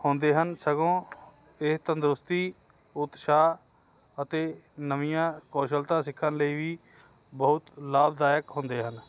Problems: none marked